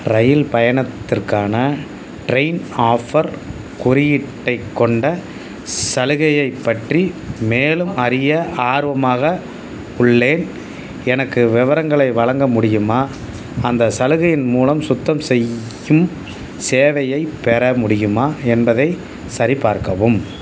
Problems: constant background noise